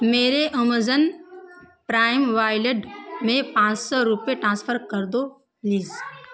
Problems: constant background noise